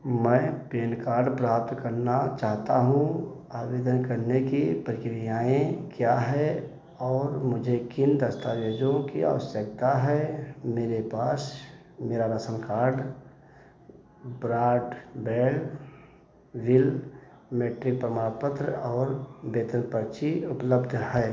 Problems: echo